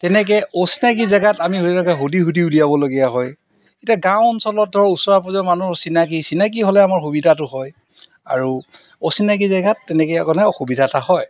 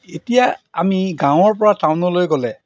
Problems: background sounds at intervals